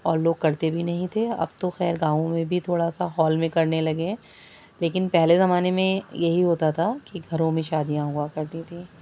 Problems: constant background noise